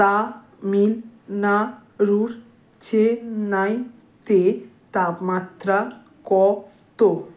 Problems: none marked